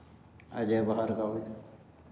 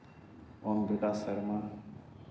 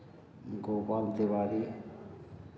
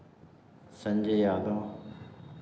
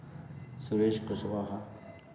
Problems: none marked